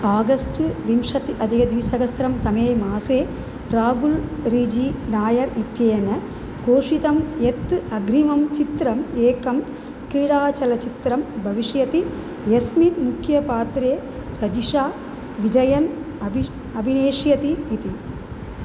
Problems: none marked